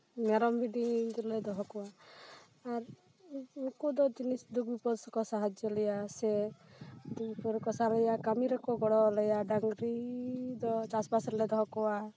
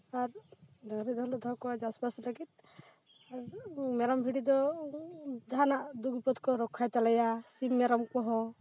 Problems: background sounds at intervals